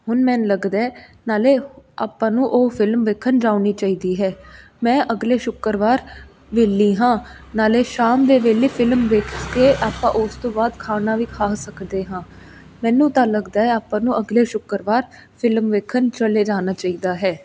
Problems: constant background noise